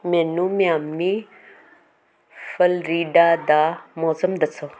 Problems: constant background noise